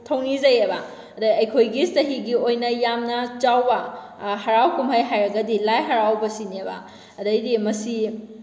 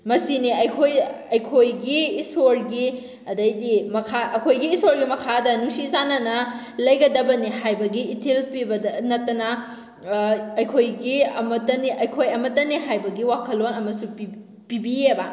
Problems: none marked